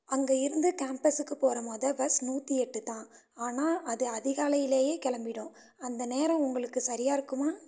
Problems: constant background noise, low volume